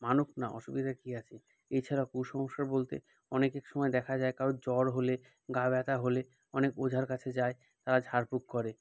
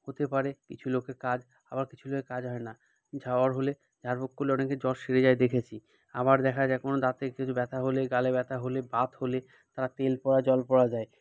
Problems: none marked